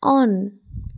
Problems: background sounds at intervals